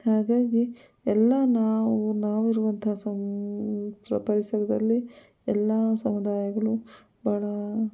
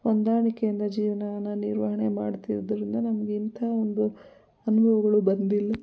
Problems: background sounds at intervals